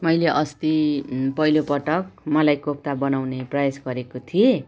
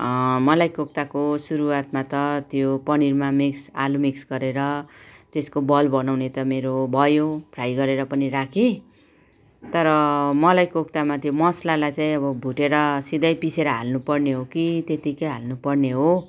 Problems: background sounds at intervals, background conversations at intervals